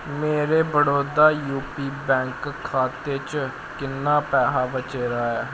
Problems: none marked